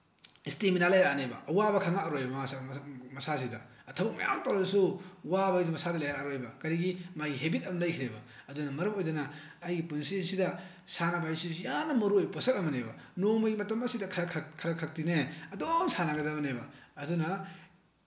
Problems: constant background noise